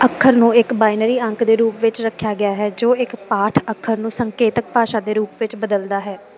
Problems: constant background noise